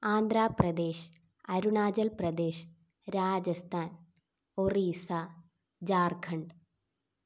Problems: low volume